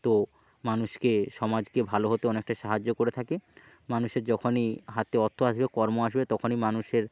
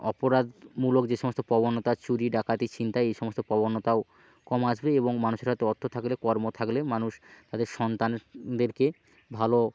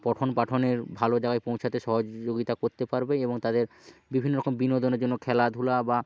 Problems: constant background noise